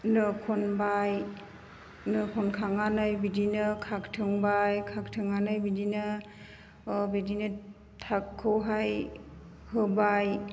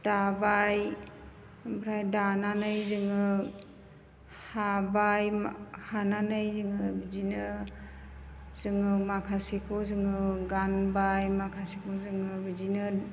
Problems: constant background noise